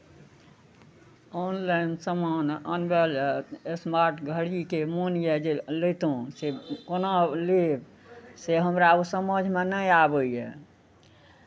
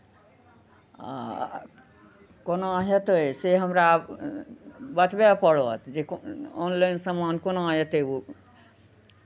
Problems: none marked